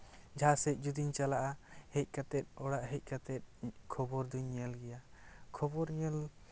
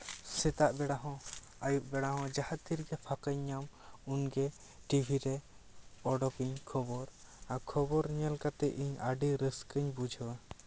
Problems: none marked